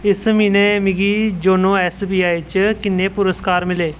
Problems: constant background noise